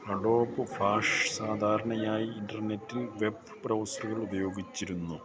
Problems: background sounds at intervals